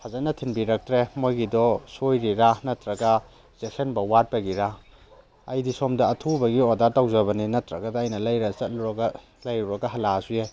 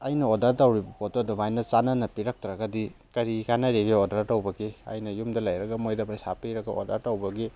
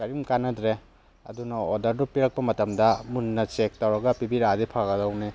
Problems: background sounds at intervals